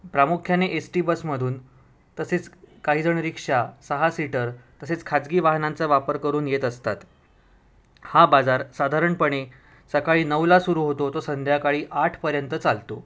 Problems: none marked